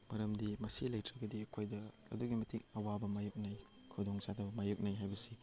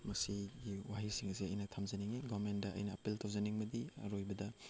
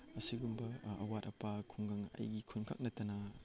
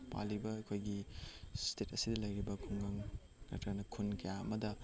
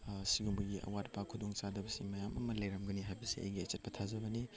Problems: none marked